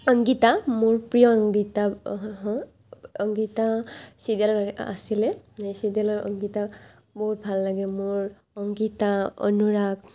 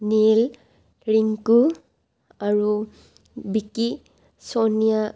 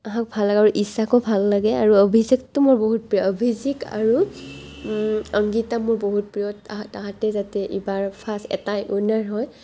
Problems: none marked